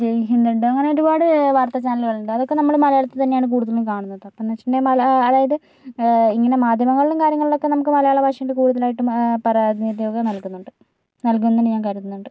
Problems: none marked